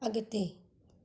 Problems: none marked